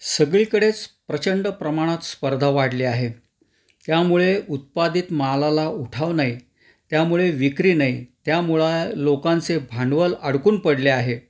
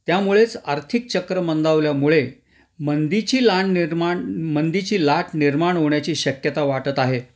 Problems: none marked